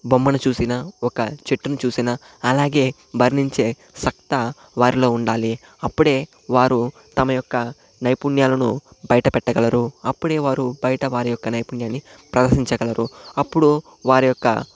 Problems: constant background noise